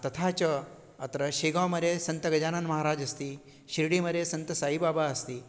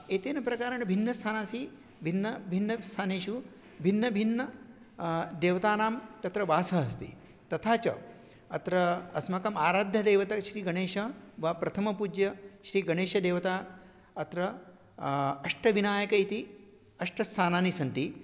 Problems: none marked